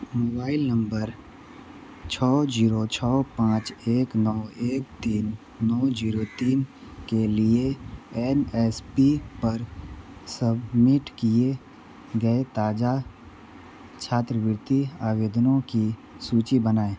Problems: constant background noise